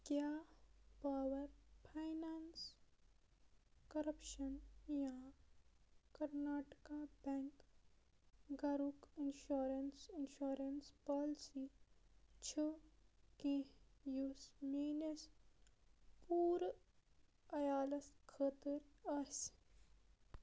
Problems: background sounds at intervals, low volume